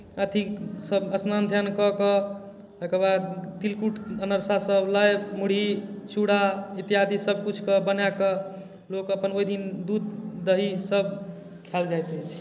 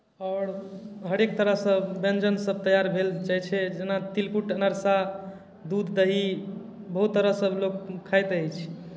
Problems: none marked